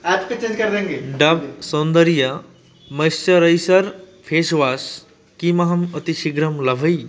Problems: background sounds at intervals